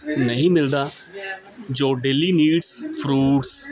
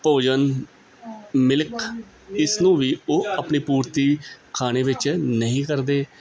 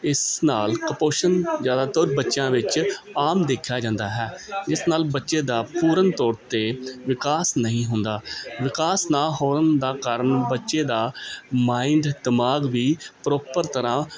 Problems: constant background noise